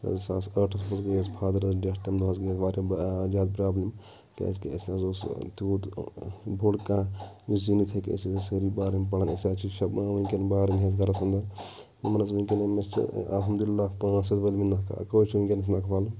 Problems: background sounds at intervals, background conversations at intervals